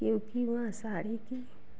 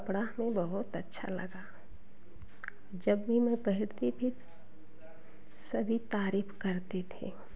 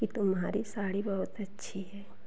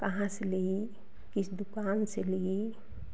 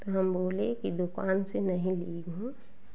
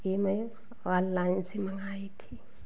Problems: background sounds at intervals, echo